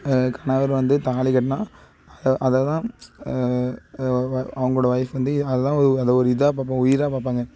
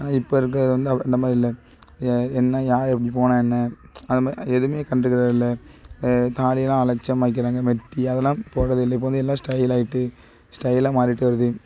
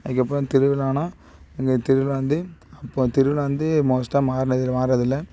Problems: background sounds at intervals